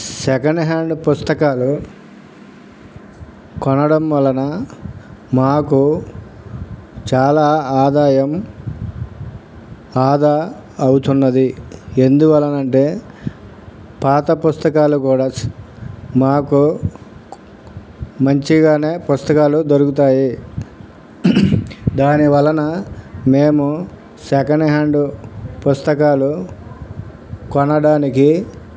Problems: none marked